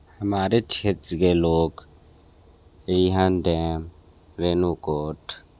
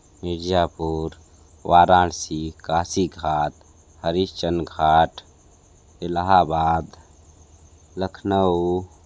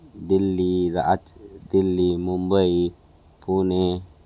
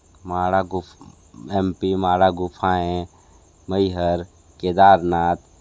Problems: constant background noise